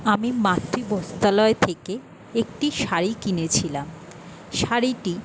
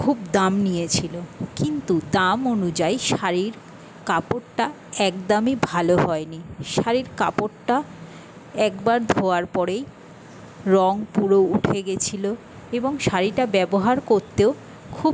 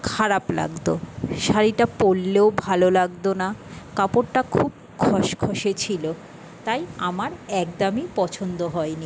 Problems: constant background noise